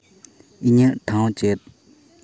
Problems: none marked